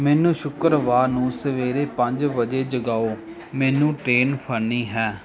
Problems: constant background noise